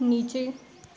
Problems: background sounds at intervals